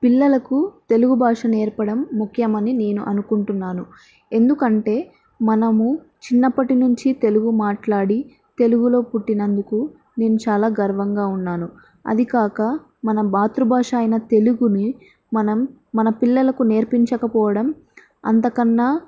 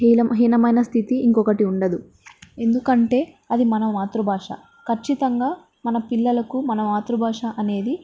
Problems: none marked